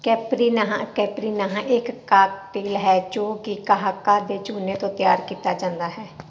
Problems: constant background noise